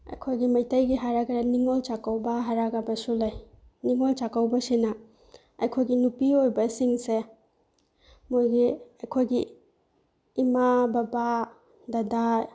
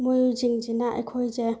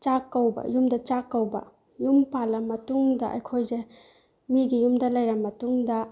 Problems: background sounds at intervals